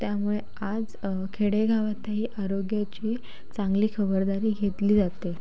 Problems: constant background noise